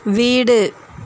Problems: constant background noise